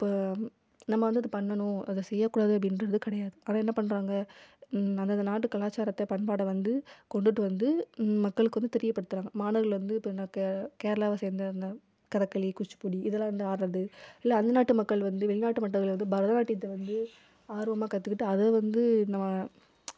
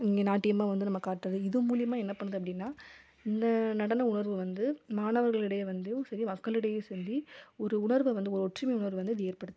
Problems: none marked